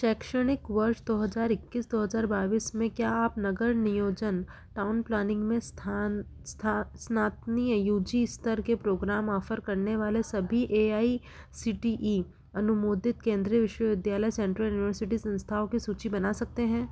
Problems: none marked